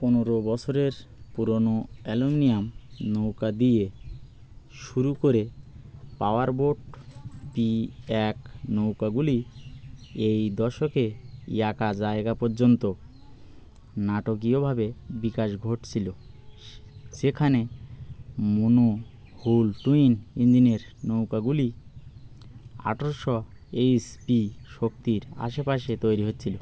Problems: constant background noise